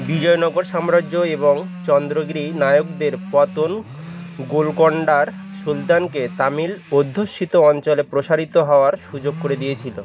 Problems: constant background noise